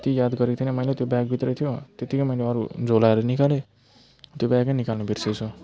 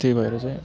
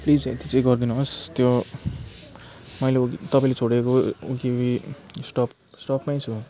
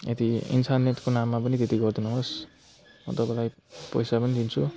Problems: constant background noise